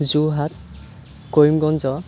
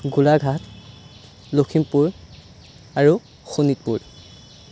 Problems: none marked